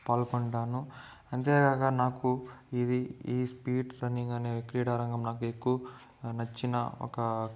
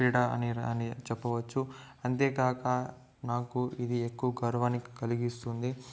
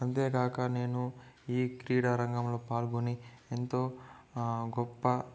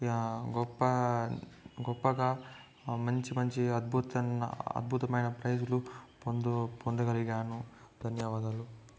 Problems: background sounds at intervals, low volume